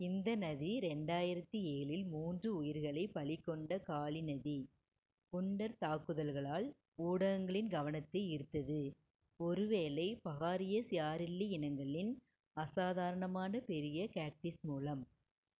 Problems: low volume